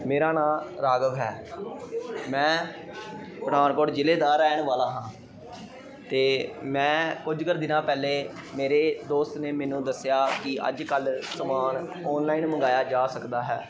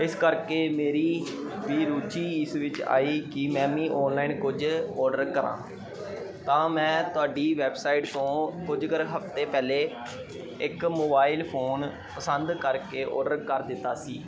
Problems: constant background noise